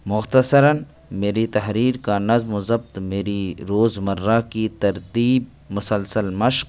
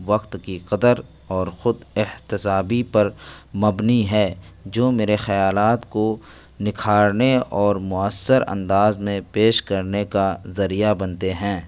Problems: constant background noise